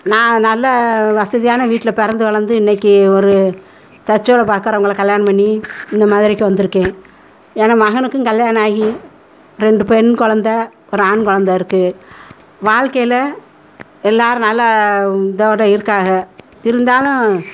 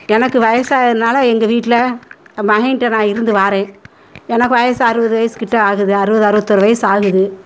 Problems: background conversations at intervals